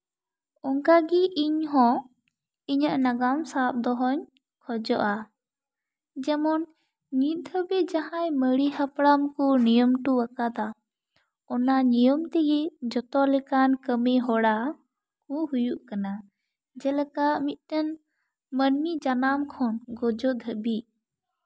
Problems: none marked